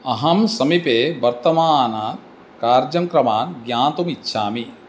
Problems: none marked